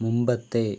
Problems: none marked